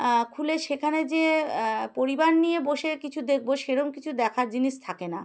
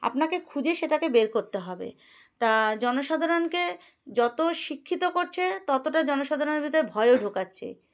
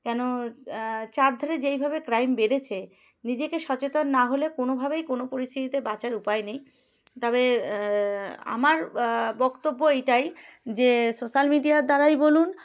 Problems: none marked